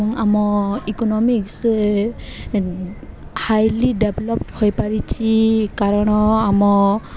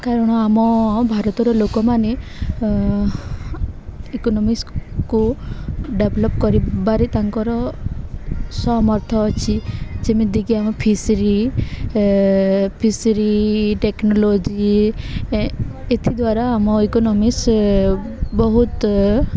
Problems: background sounds at intervals, background conversations at intervals